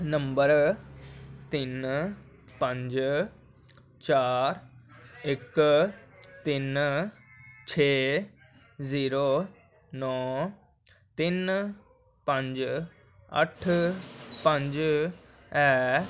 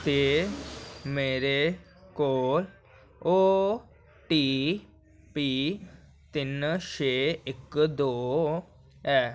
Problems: none marked